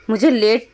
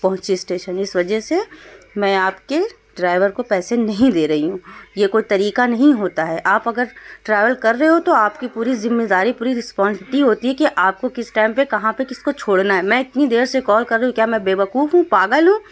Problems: constant background noise